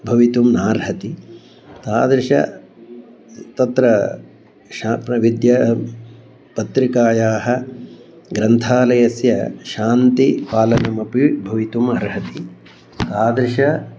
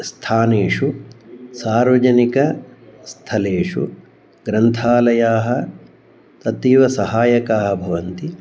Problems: none marked